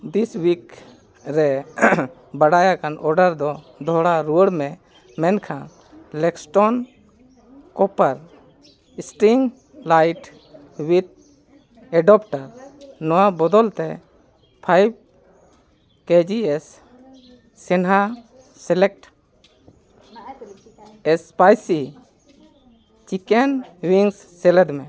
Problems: background sounds at intervals, continuous background conversations